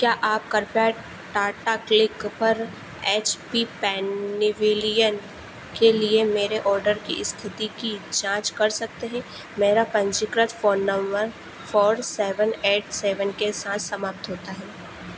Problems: constant background noise